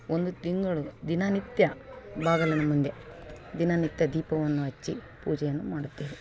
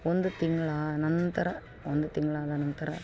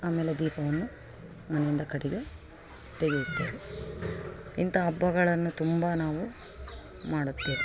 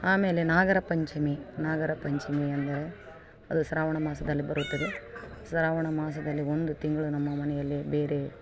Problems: background sounds at intervals